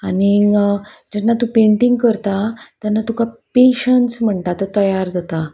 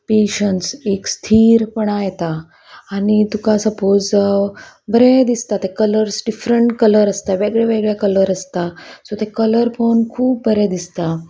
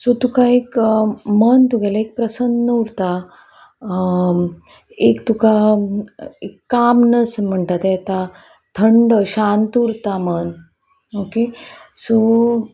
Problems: none marked